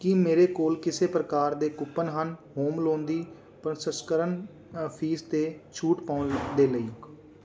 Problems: background sounds at intervals